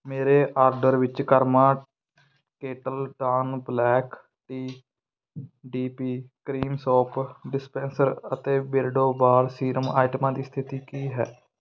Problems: none marked